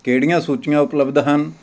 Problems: background sounds at intervals